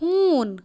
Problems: background sounds at intervals